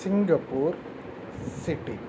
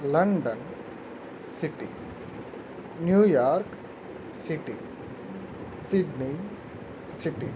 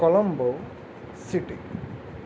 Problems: constant background noise